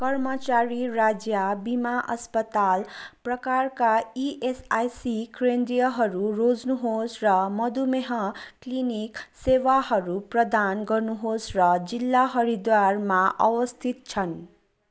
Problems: constant background noise